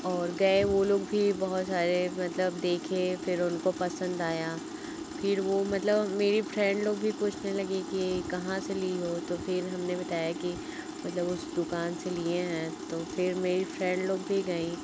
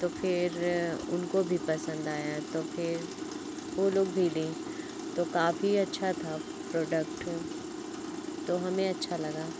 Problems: none marked